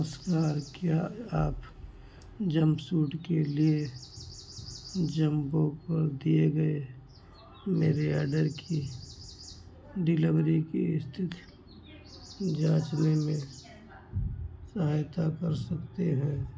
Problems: constant background noise